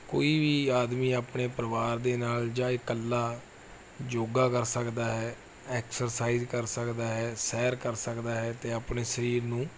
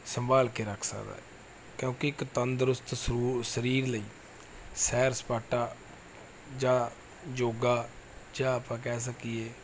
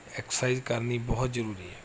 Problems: none marked